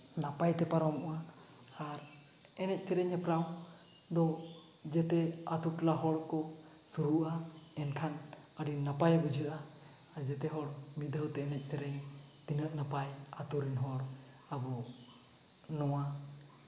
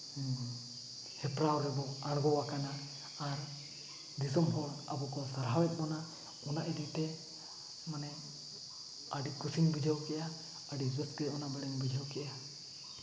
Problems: background sounds at intervals